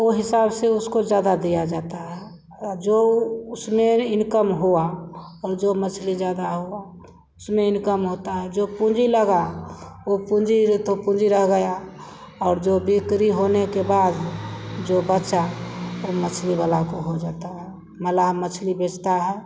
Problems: background sounds at intervals